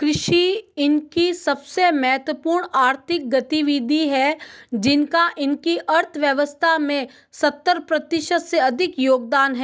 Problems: none marked